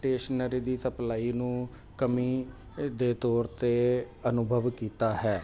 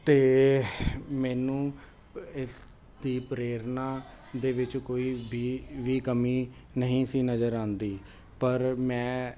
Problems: constant background noise